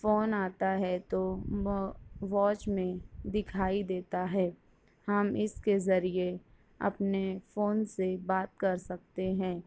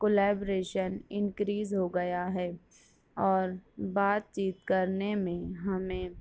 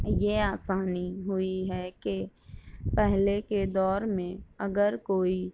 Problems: none marked